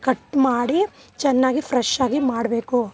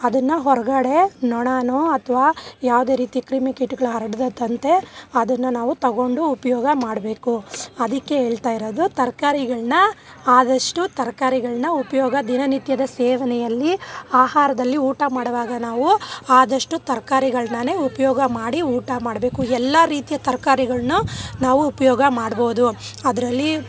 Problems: background sounds at intervals